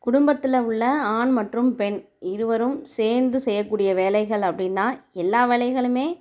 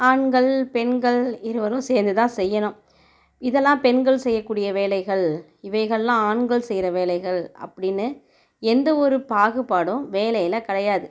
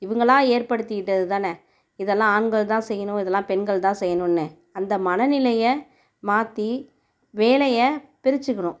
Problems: none marked